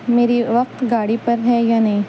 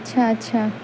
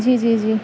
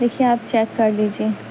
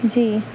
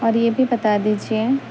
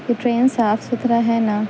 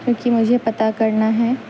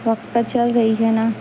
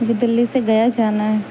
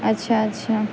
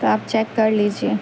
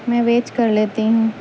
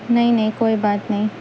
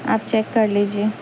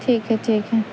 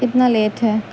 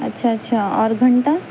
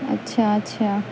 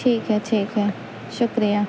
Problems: constant background noise